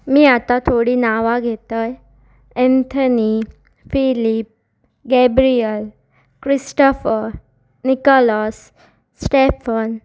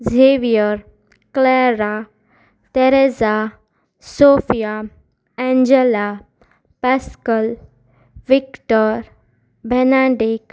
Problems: constant background noise